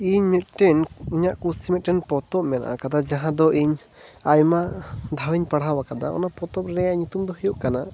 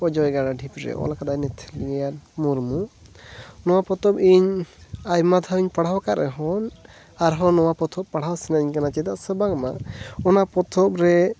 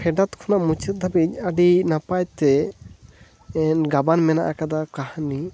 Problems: none marked